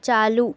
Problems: none marked